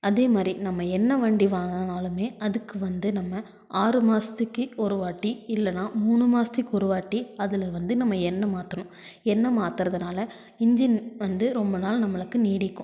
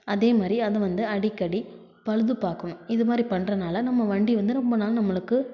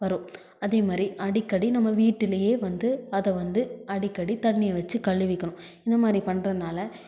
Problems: none marked